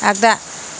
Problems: constant background noise